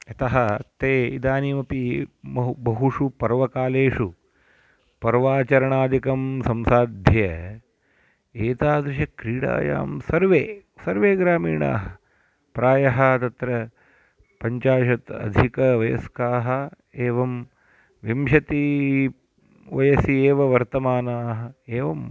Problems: constant background noise